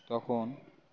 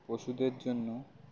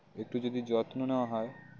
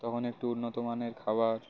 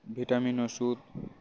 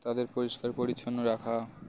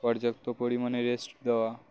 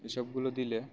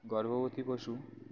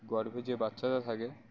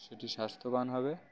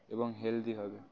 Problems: none marked